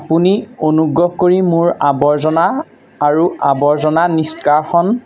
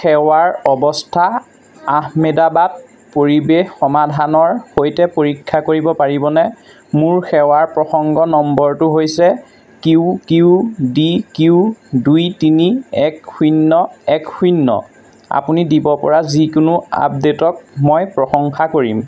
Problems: constant background noise